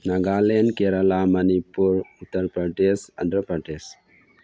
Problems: background sounds at intervals